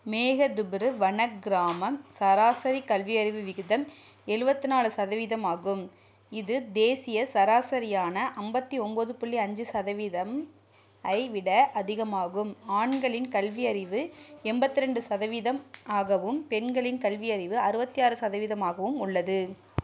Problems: low volume